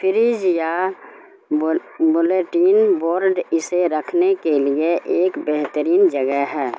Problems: constant background noise